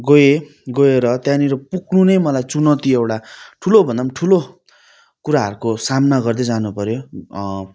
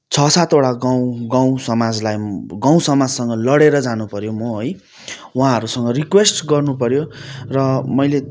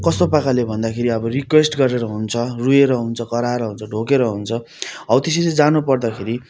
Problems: background sounds at intervals